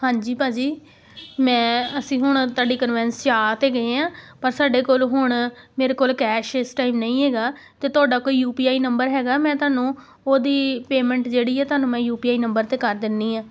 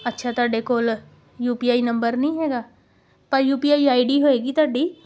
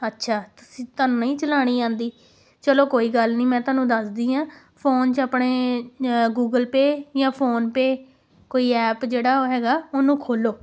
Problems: none marked